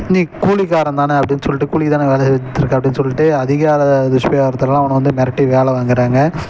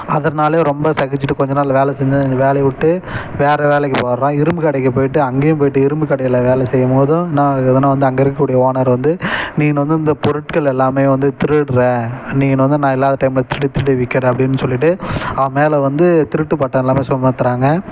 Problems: none marked